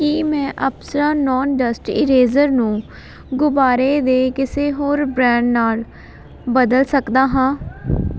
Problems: background sounds at intervals, continuous background conversations